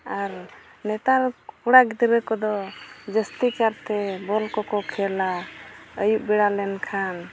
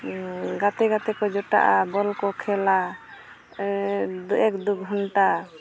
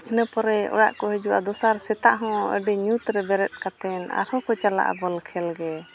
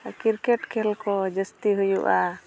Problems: constant background noise